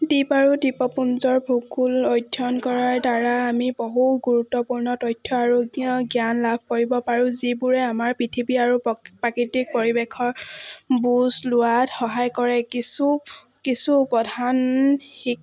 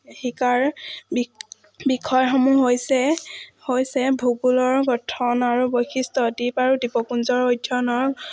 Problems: none marked